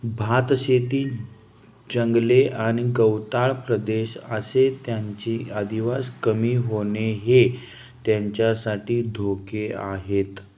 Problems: none marked